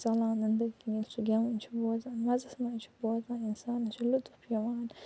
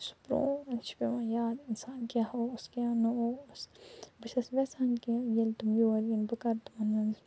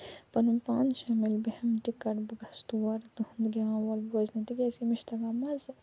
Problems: low volume